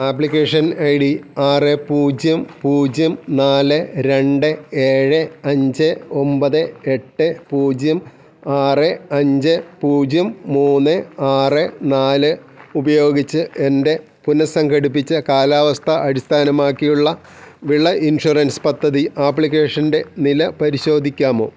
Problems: none marked